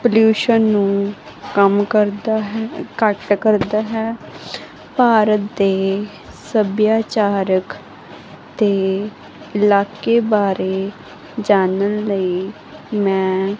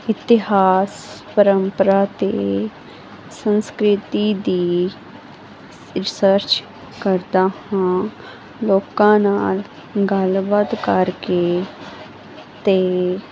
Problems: background sounds at intervals